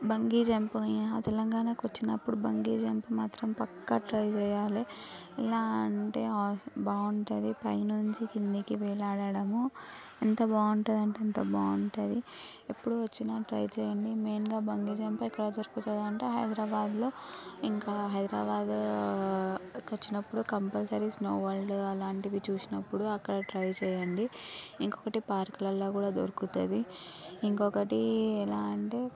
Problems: background conversations at intervals